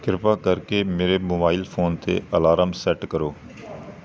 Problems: background sounds at intervals